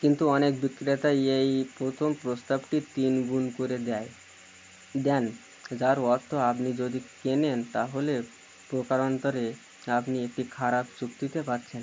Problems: constant background noise